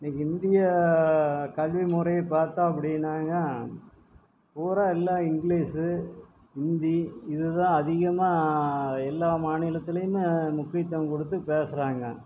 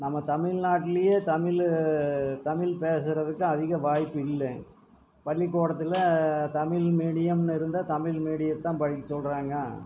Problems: background sounds at intervals, low volume